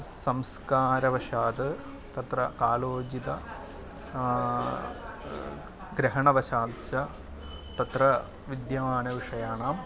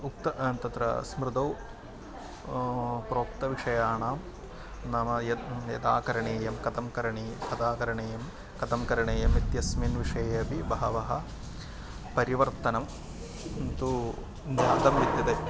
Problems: constant background noise, continuous background conversations